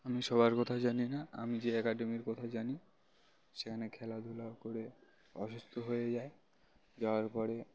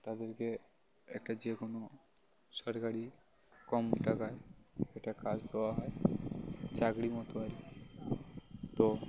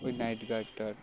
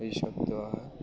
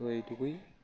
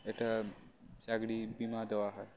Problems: none marked